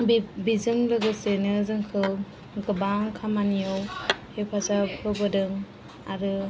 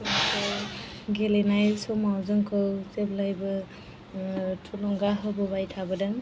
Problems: none marked